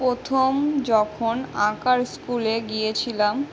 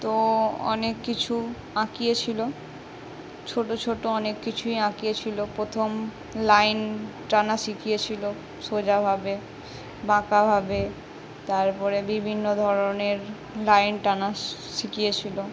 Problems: none marked